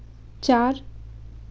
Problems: constant background noise